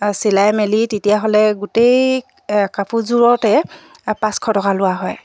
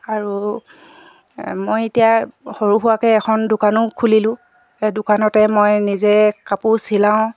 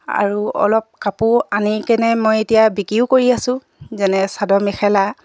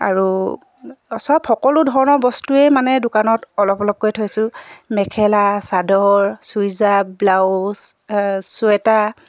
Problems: none marked